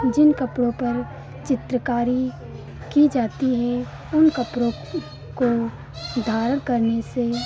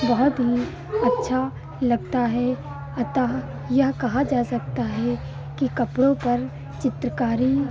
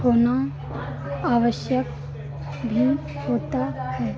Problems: constant background noise, continuous background conversations